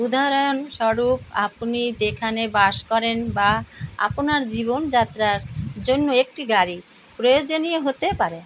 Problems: none marked